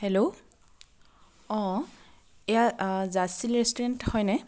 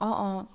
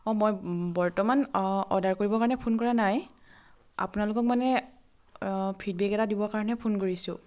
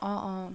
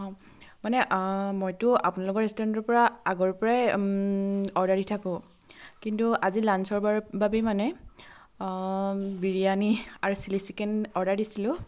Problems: constant background noise